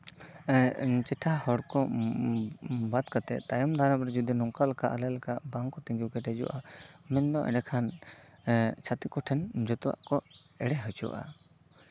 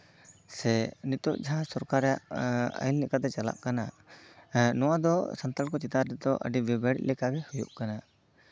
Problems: constant background noise, background conversations at intervals